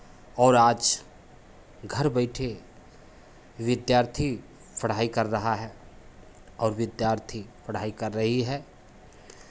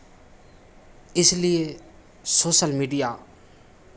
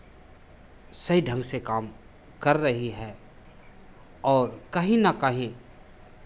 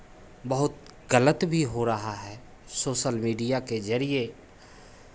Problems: constant background noise, background conversations at intervals